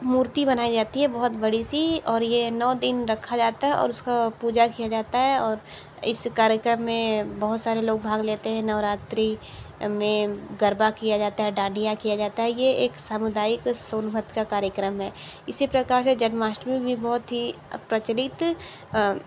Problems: none marked